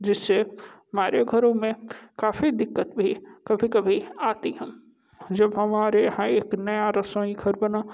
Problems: background sounds at intervals